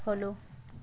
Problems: none marked